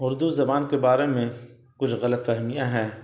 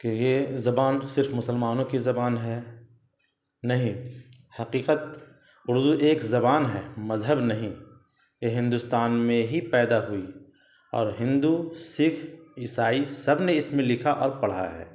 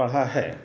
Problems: constant background noise